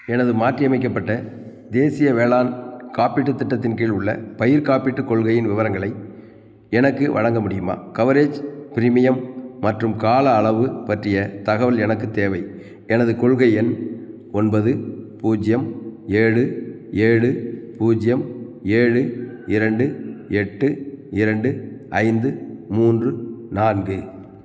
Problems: none marked